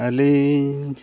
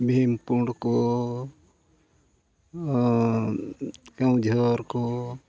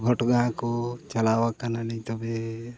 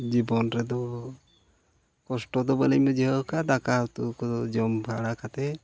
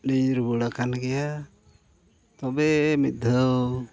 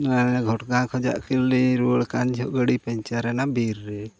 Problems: none marked